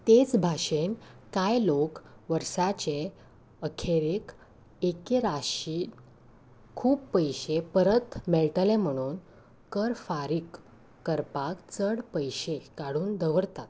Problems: background sounds at intervals